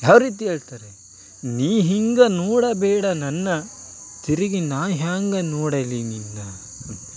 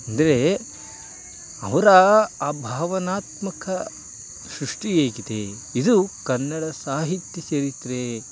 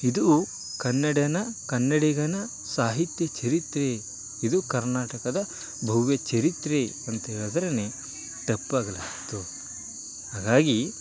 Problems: none marked